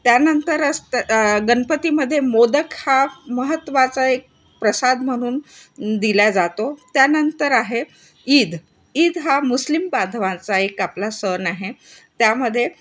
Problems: constant background noise, background conversations at intervals